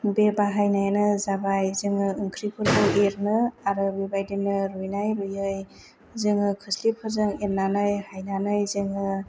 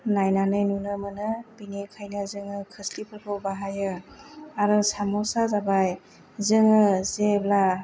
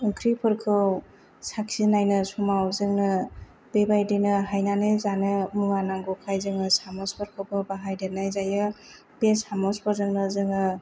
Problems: none marked